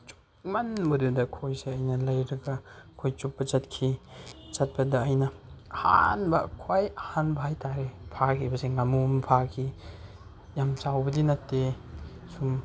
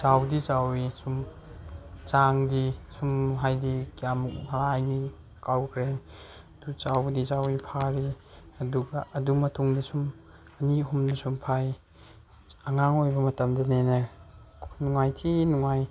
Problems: none marked